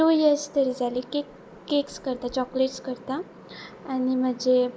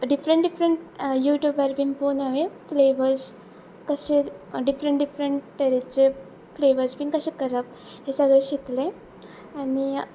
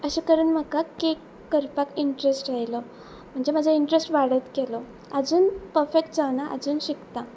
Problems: constant background noise